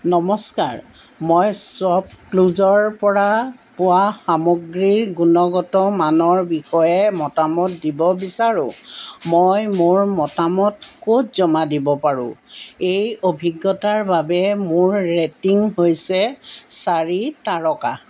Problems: background sounds at intervals